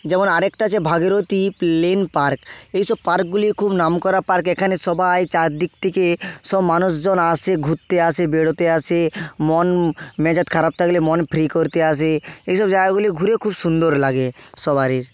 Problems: constant background noise